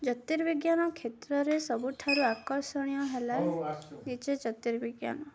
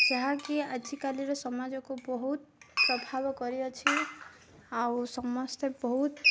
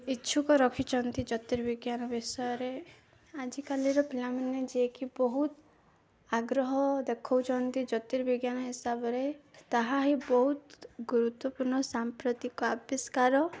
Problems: none marked